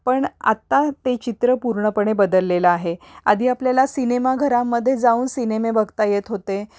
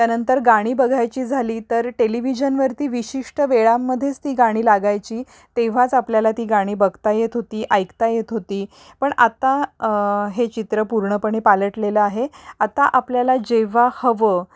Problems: none marked